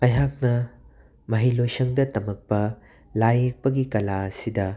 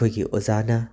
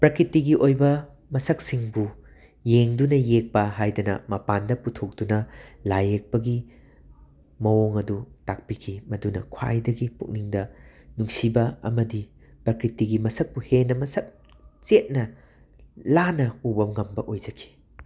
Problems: constant background noise